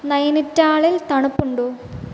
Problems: constant background noise